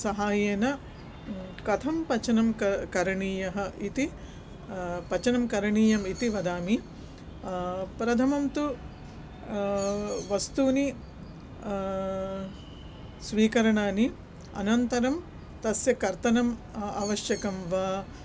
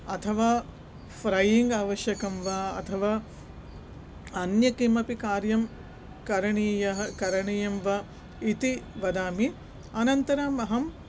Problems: none marked